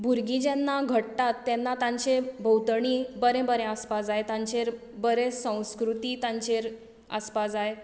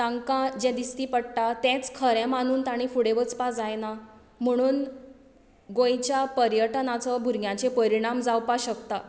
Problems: background sounds at intervals